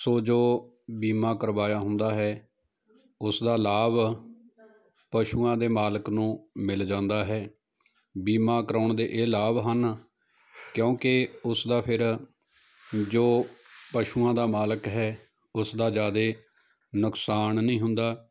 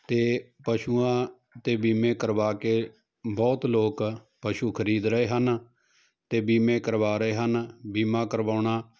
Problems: none marked